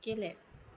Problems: none marked